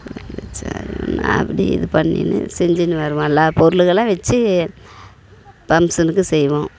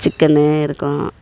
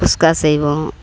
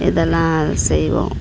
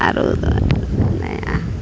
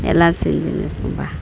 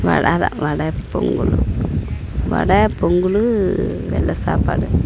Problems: constant background noise